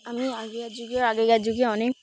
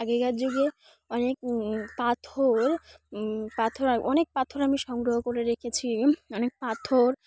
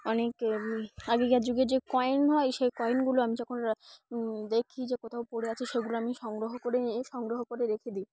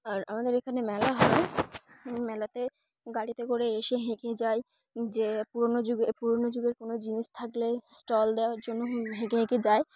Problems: none marked